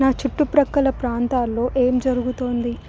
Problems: constant background noise